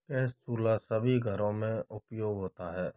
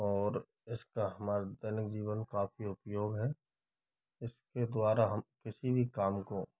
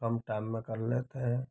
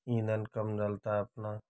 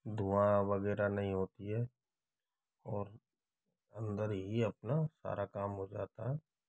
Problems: background sounds at intervals